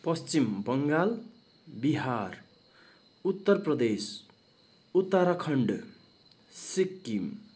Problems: none marked